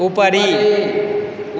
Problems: echo